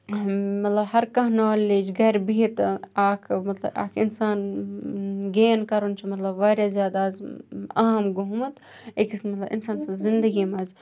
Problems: background conversations at intervals